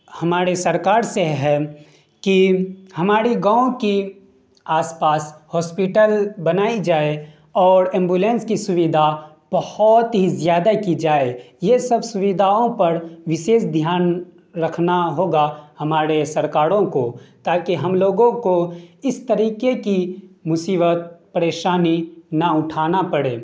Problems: none marked